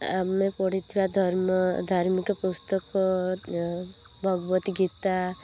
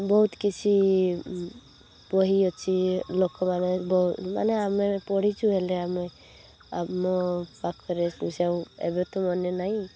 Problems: constant background noise